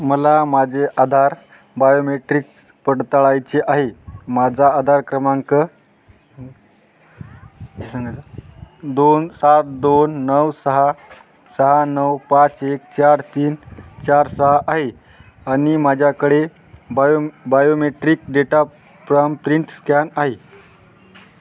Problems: constant background noise, background conversations at intervals